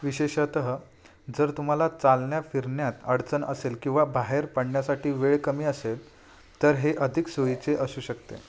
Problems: none marked